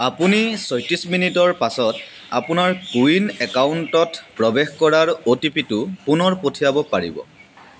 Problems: constant background noise